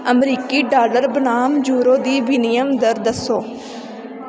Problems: constant background noise